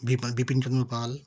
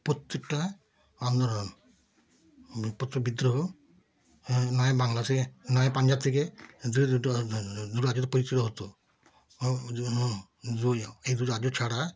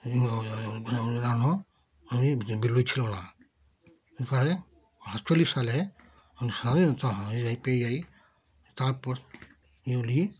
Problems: background sounds at intervals